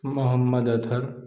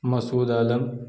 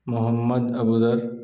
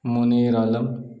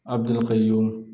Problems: none marked